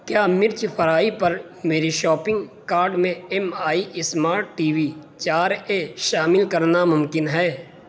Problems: constant background noise